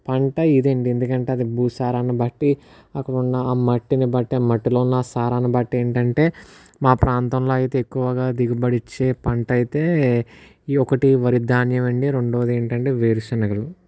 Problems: none marked